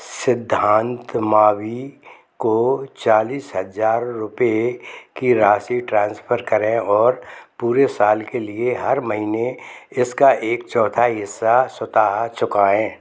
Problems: background sounds at intervals